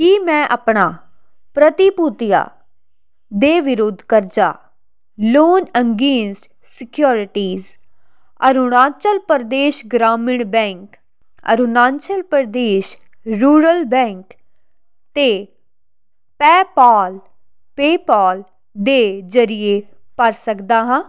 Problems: constant background noise